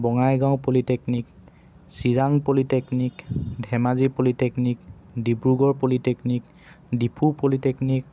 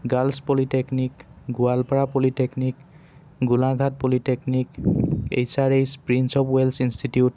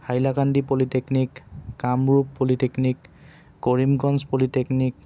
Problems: background sounds at intervals